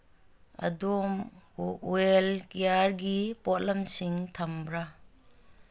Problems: background sounds at intervals